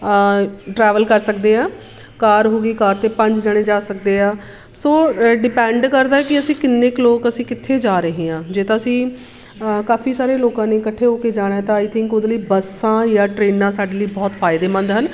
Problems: constant background noise